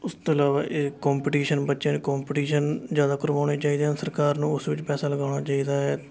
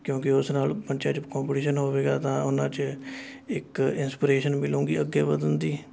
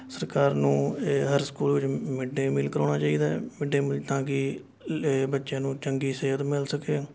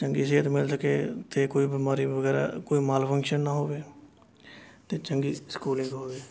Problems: constant background noise, continuous background conversations